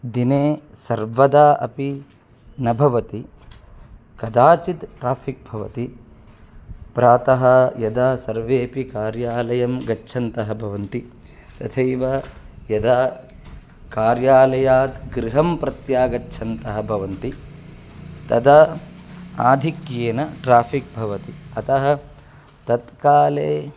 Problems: constant background noise